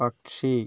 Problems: none marked